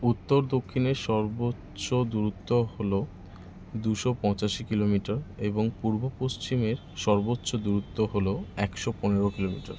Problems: constant background noise